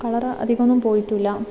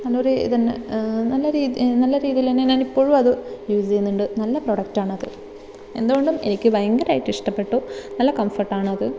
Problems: background sounds at intervals